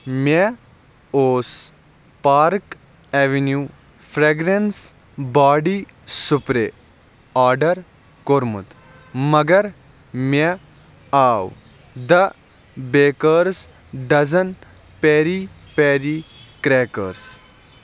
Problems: none marked